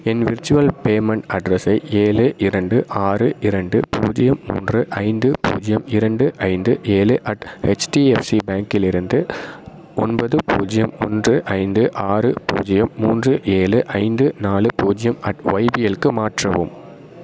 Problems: none marked